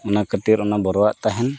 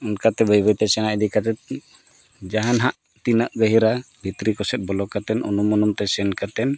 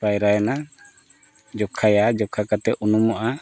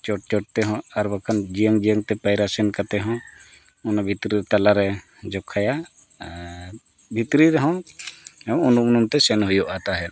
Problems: background sounds at intervals